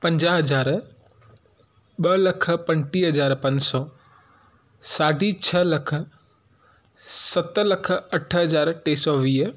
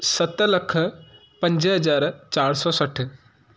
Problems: background sounds at intervals